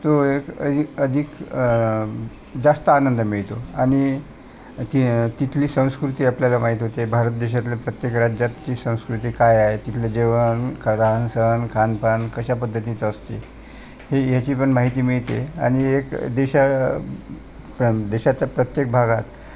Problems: constant background noise, continuous background conversations